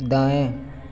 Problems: constant background noise, echo